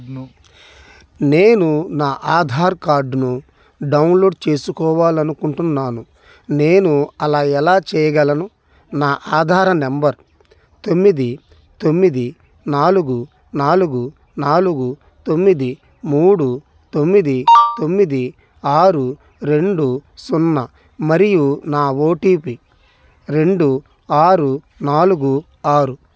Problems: background sounds at intervals